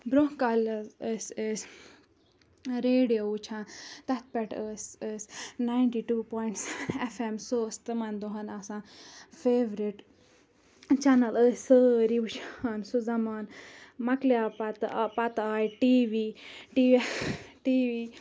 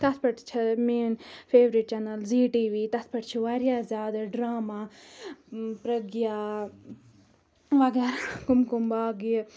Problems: background sounds at intervals